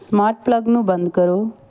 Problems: none marked